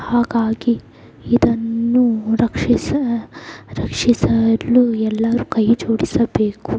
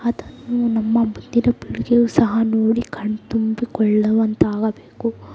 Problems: background sounds at intervals